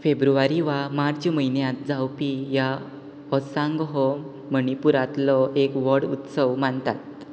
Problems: constant background noise